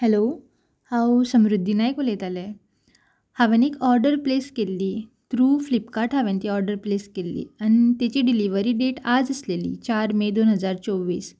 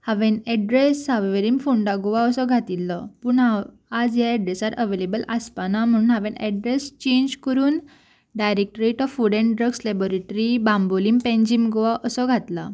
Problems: background sounds at intervals